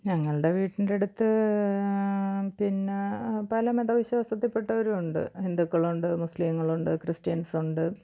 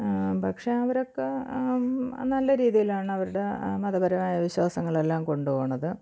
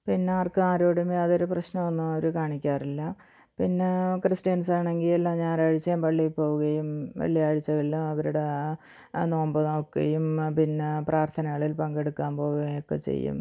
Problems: low volume